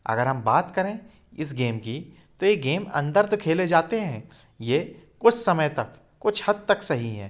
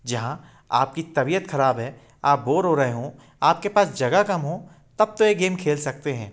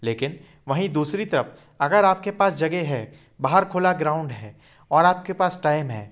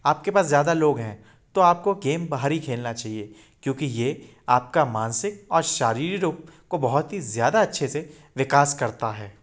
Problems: none marked